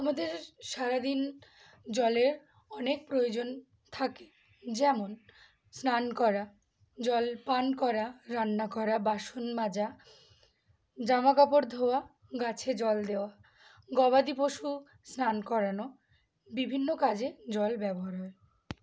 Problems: constant background noise